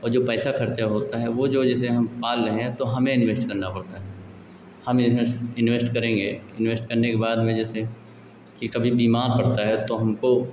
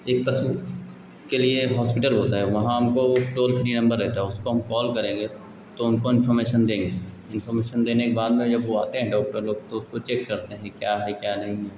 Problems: constant background noise, background conversations at intervals